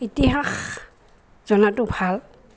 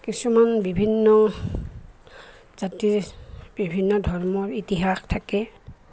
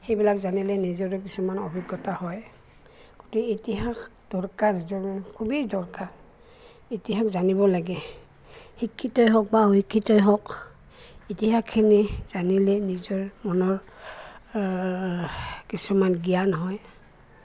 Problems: constant background noise, background conversations at intervals